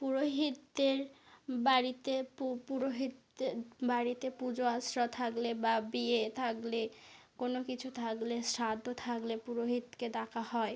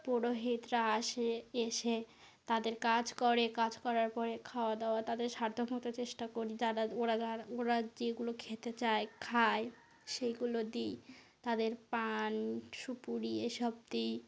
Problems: constant background noise